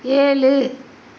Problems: constant background noise